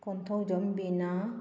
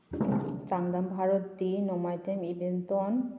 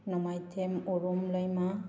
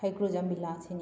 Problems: background sounds at intervals